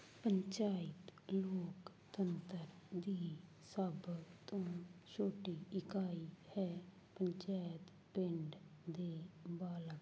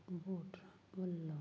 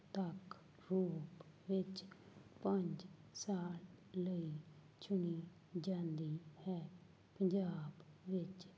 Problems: none marked